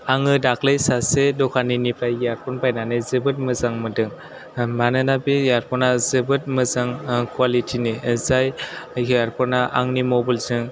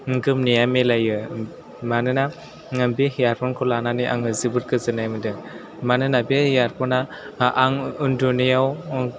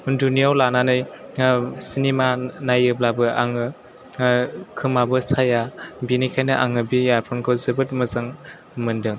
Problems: none marked